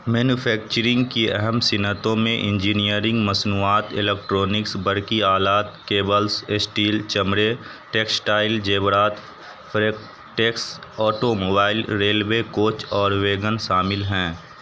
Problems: constant background noise